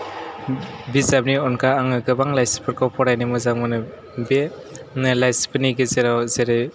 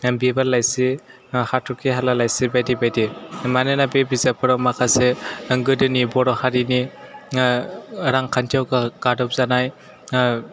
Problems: none marked